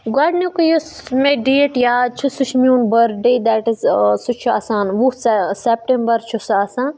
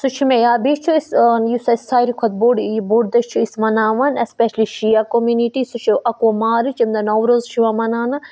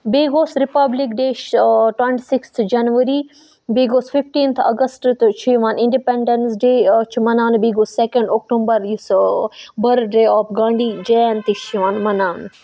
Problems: background sounds at intervals